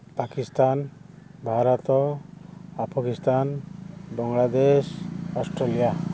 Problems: constant background noise